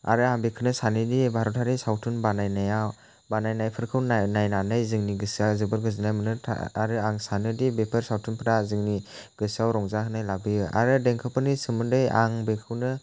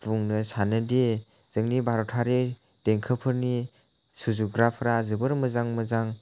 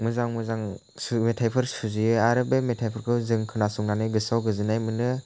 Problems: none marked